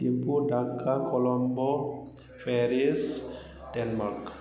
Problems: none marked